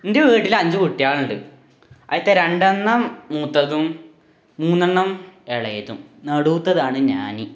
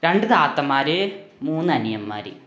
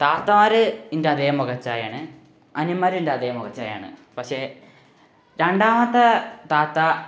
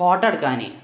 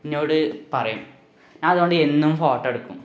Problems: background sounds at intervals